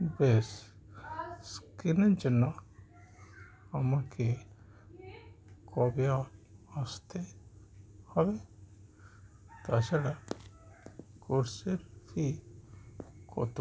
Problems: none marked